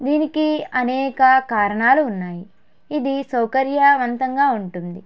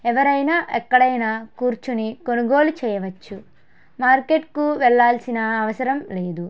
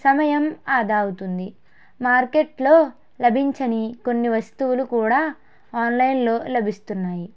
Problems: background sounds at intervals